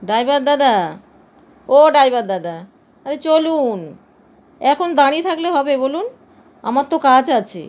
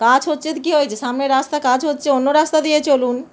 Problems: none marked